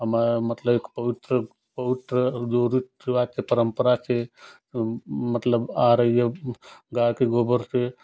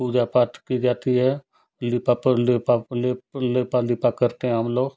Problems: constant background noise